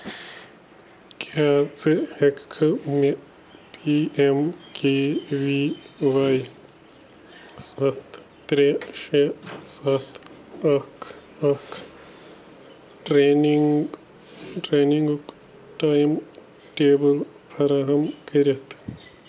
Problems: constant background noise